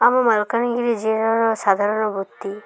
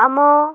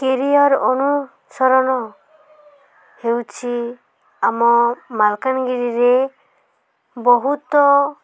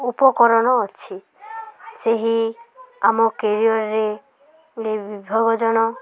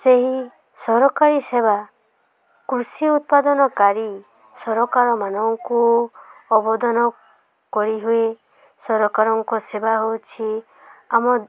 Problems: constant background noise, continuous background conversations